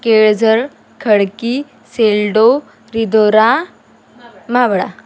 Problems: background conversations at intervals